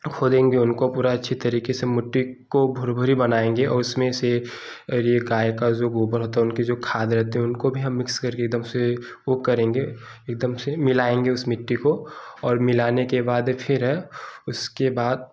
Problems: background sounds at intervals